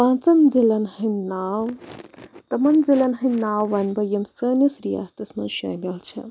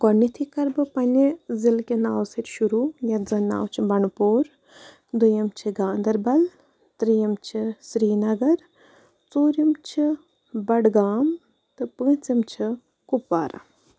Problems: none marked